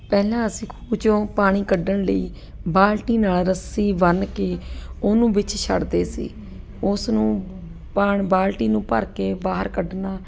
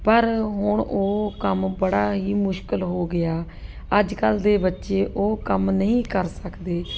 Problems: none marked